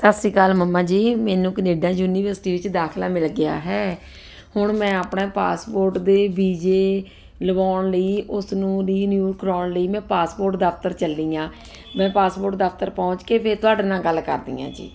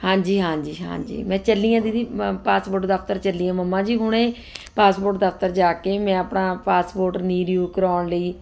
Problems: none marked